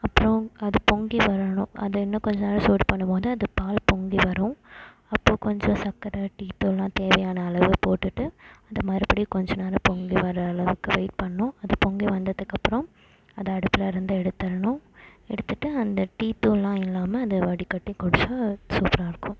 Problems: constant background noise